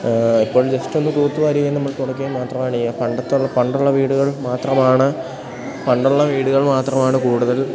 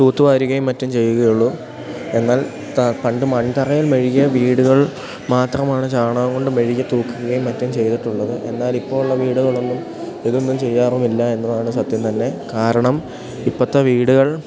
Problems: background sounds at intervals